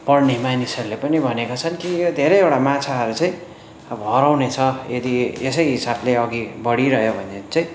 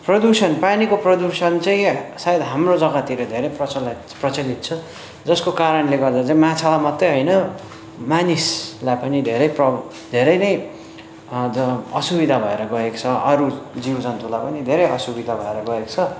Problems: constant background noise, background conversations at intervals